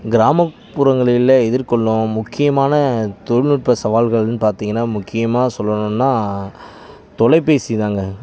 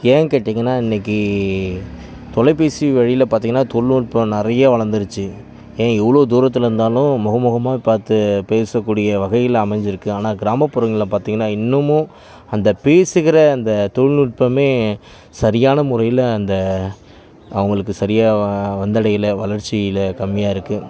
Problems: continuous background conversations